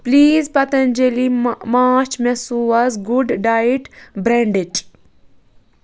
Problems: constant background noise